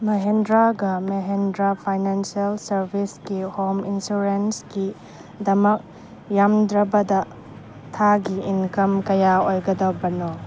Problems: background sounds at intervals